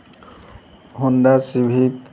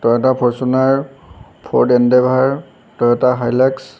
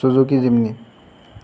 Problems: background sounds at intervals